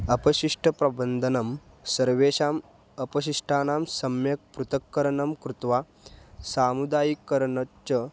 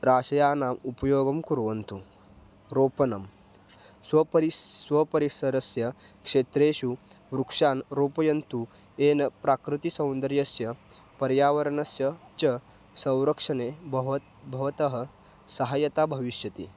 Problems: background sounds at intervals